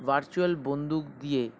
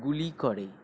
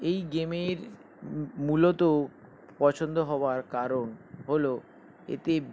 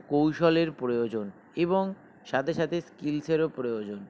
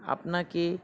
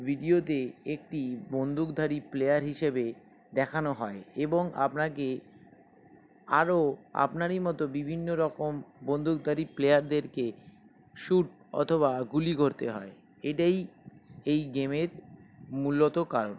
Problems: background sounds at intervals